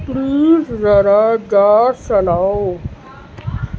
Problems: constant background noise